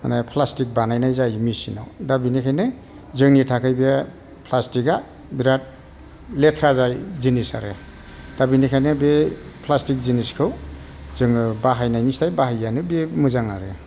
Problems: constant background noise